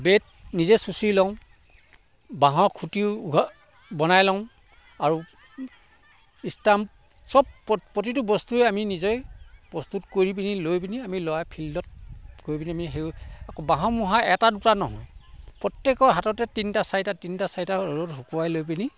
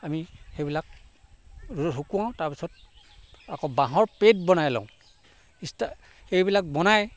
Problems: constant background noise